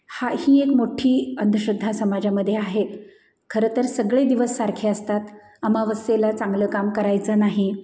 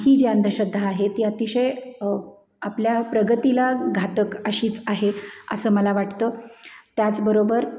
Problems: none marked